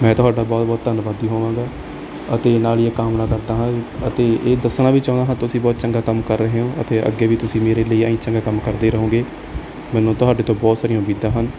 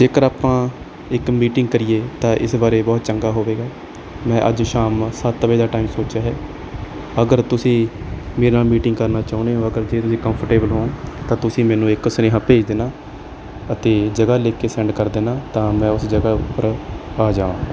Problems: none marked